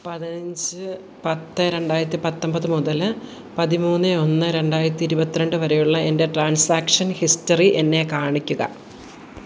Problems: background sounds at intervals